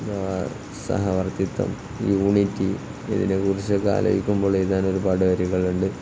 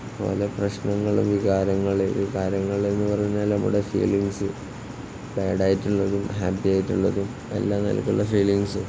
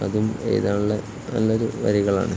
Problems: constant background noise